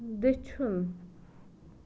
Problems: none marked